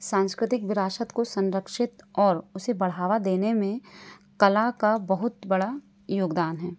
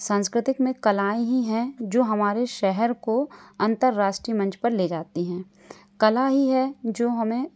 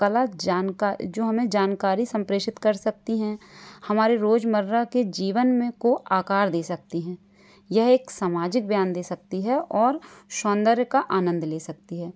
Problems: background sounds at intervals